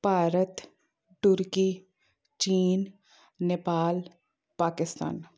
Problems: none marked